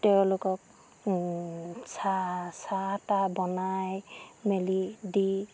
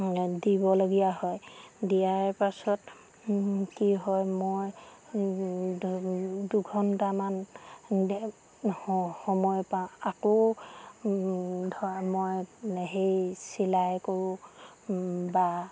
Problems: none marked